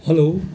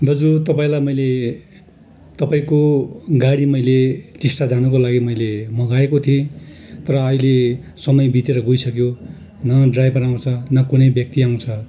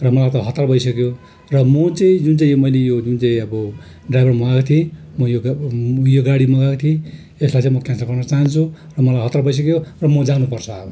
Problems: constant background noise